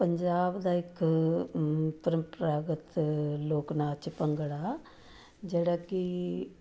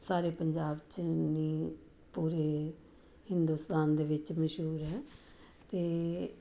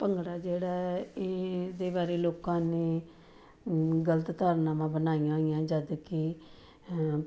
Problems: background sounds at intervals